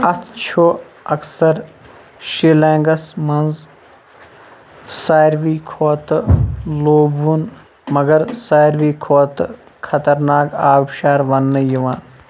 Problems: constant background noise